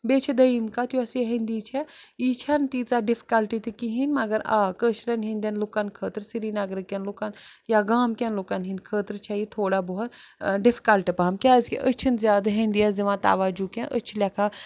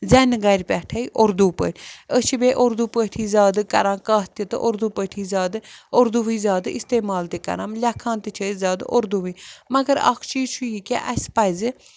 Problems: constant background noise